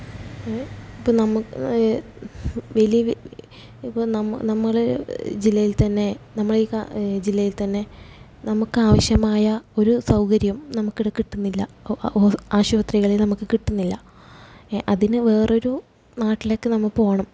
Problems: none marked